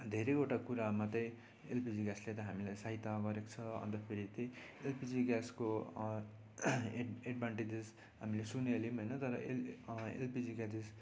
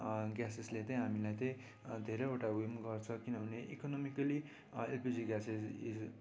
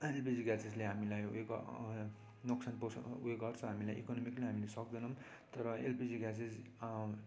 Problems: constant background noise, low volume